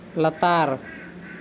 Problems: constant background noise